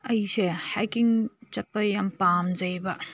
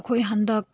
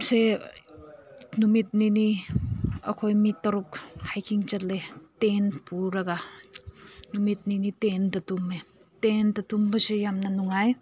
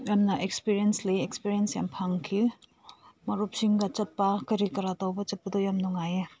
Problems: none marked